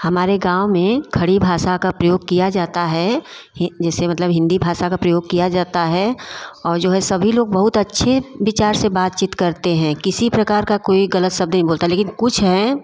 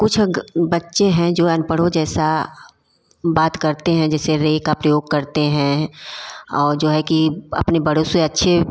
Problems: constant background noise, background conversations at intervals